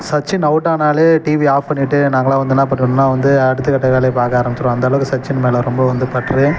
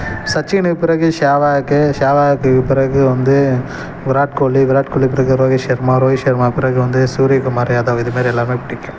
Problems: background sounds at intervals